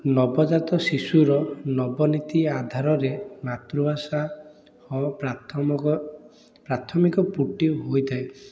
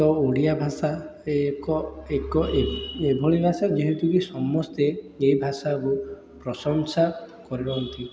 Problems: constant background noise, continuous background conversations